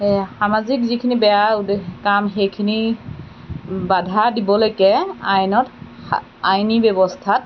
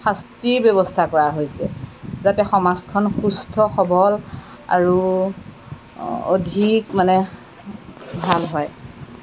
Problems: background sounds at intervals